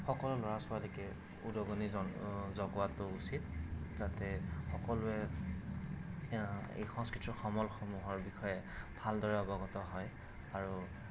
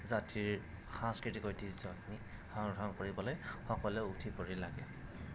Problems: constant background noise